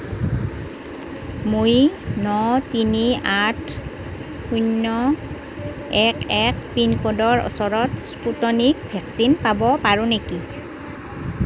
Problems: constant background noise